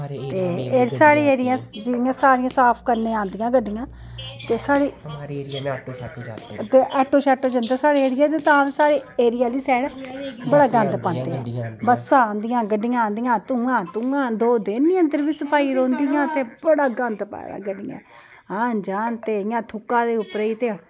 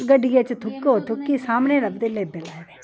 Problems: background sounds at intervals